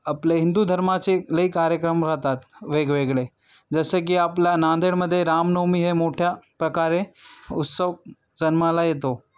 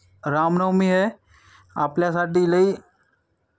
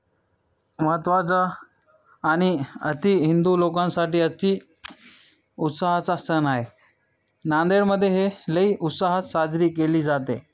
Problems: background sounds at intervals, background conversations at intervals